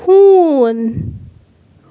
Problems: none marked